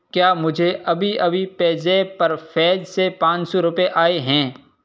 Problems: constant background noise